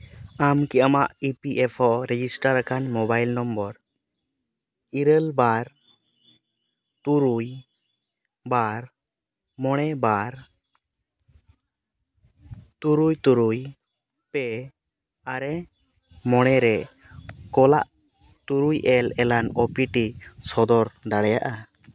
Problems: none marked